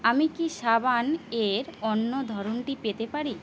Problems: none marked